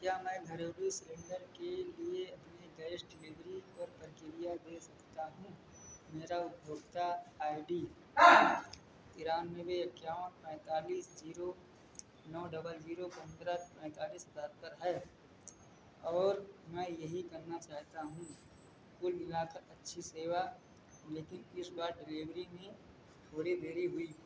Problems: background sounds at intervals